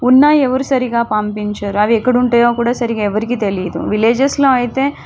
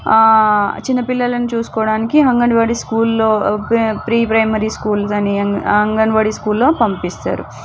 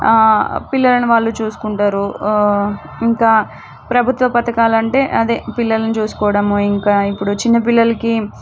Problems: background sounds at intervals